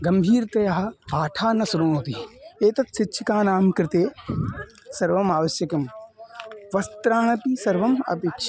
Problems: constant background noise, continuous background conversations